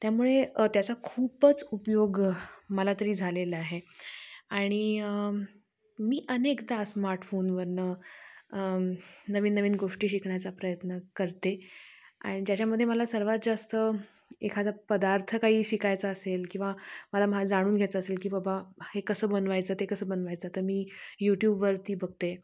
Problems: none marked